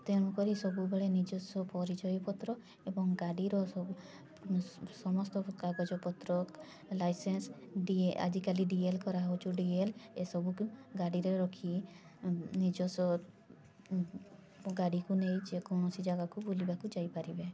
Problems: constant background noise, continuous background conversations